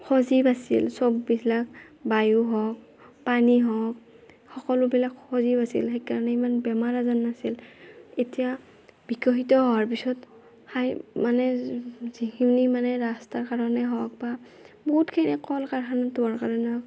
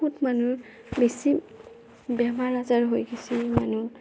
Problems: none marked